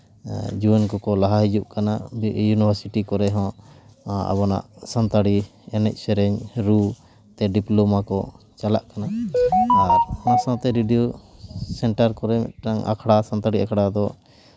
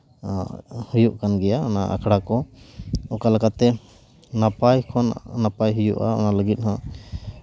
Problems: background sounds at intervals